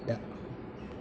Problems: constant background noise